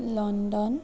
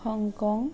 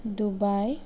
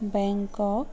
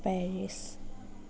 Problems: background conversations at intervals